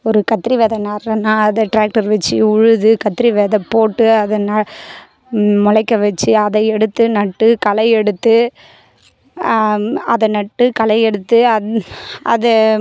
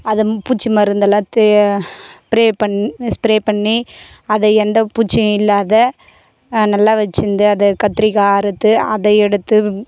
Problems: constant background noise